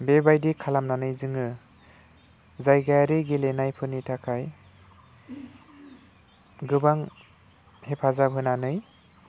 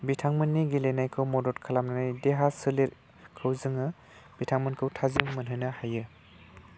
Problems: low volume